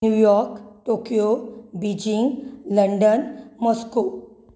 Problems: none marked